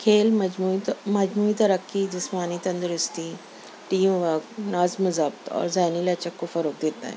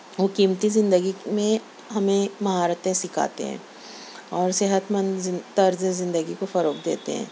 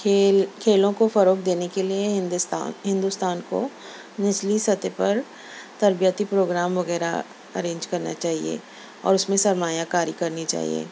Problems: none marked